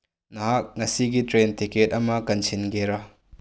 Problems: low volume